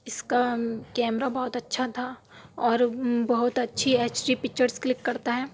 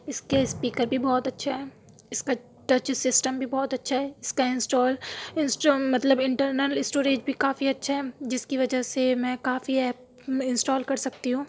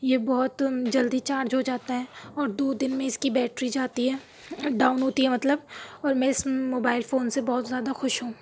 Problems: background sounds at intervals